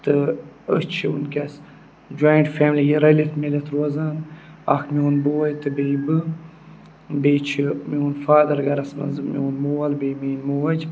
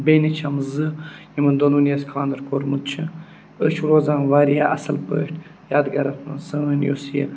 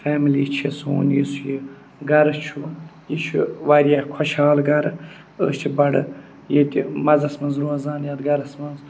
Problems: none marked